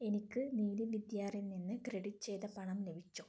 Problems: low volume